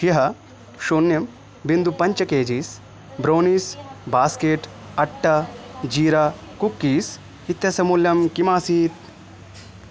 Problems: constant background noise